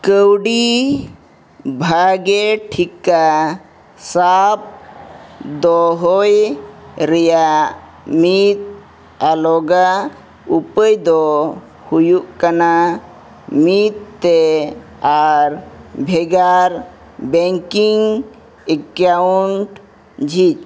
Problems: none marked